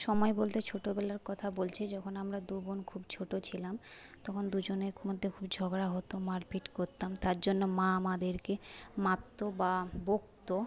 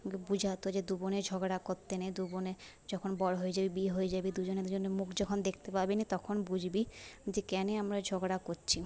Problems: constant background noise, low volume